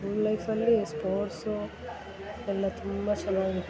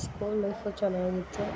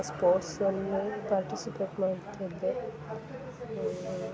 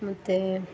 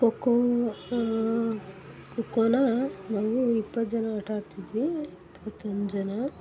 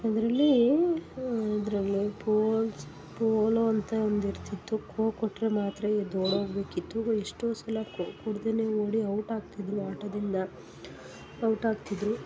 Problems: none marked